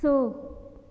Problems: none marked